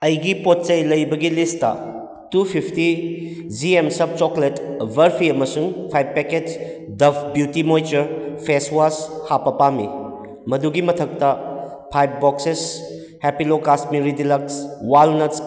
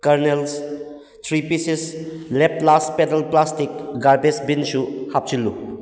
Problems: echo